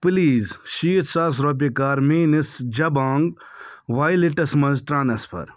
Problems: none marked